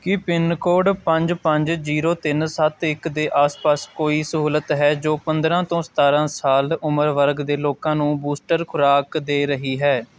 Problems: constant background noise